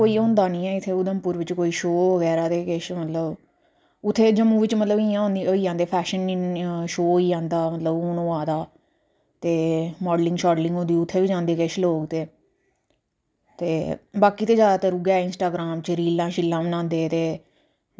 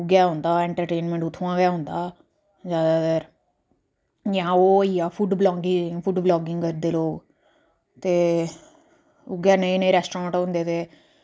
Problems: low volume